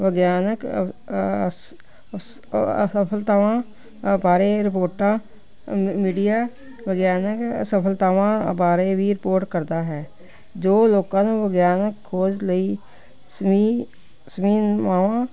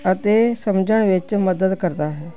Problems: none marked